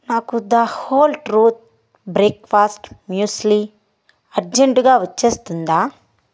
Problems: none marked